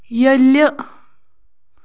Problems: background sounds at intervals